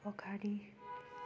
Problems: none marked